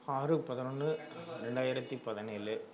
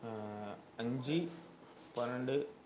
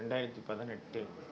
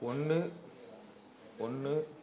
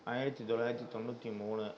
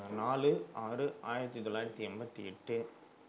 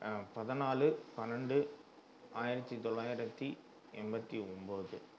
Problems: none marked